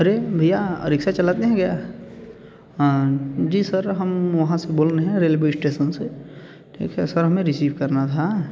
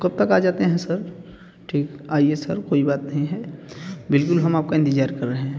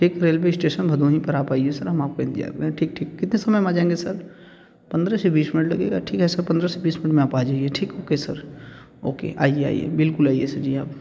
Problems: none marked